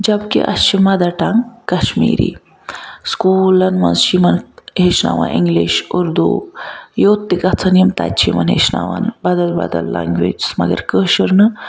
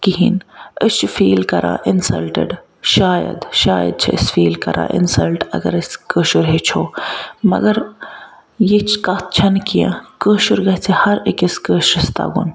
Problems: background sounds at intervals